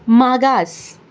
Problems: none marked